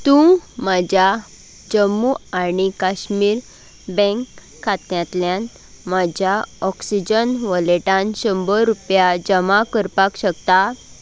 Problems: background sounds at intervals